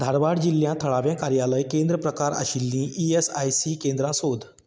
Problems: background sounds at intervals